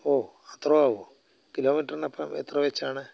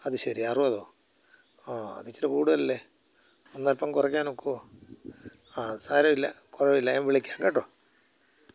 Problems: low volume